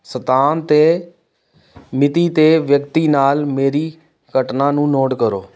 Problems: background sounds at intervals